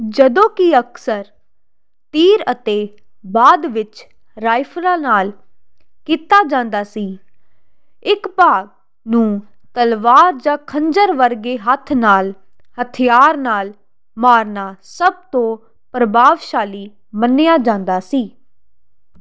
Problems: constant background noise